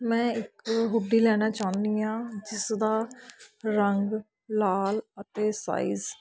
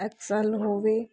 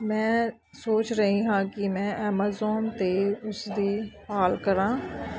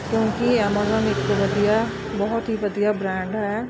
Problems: none marked